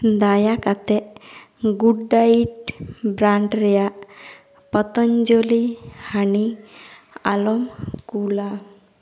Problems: echo